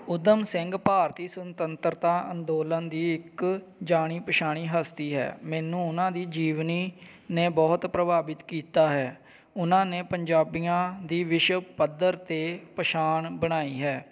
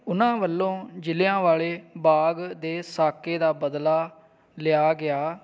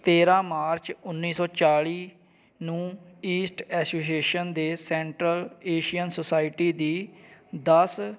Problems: background sounds at intervals